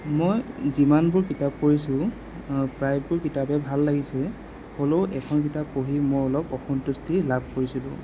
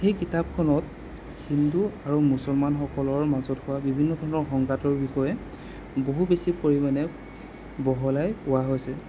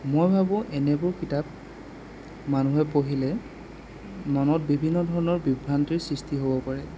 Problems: constant background noise